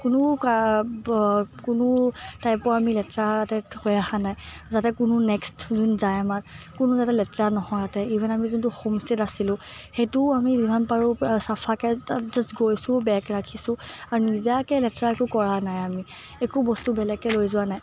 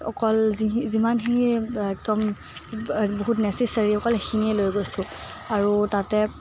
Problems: background sounds at intervals